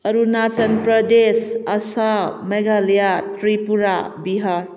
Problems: background sounds at intervals